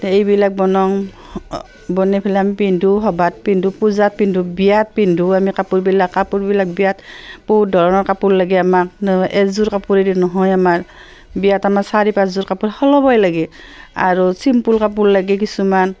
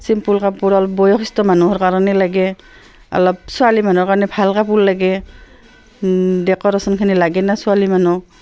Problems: constant background noise, background conversations at intervals